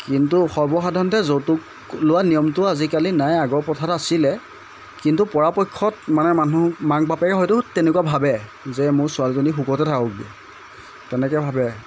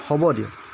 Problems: constant background noise